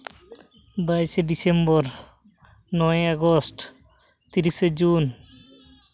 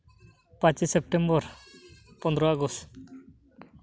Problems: constant background noise